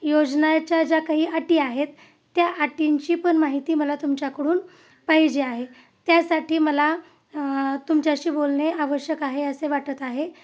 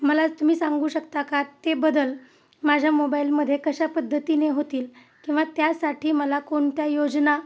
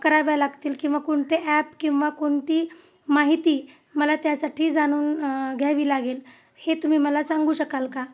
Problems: none marked